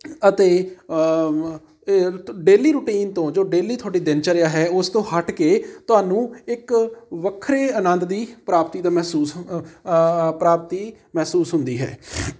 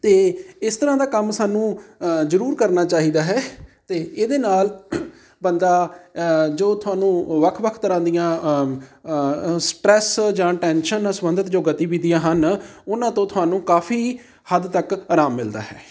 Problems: none marked